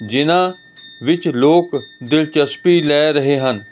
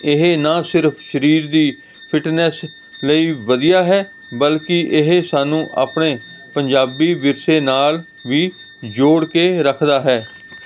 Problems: constant background noise